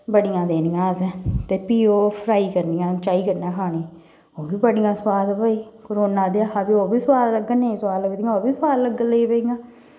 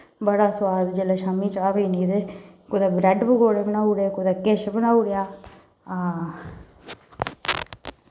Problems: background sounds at intervals, echo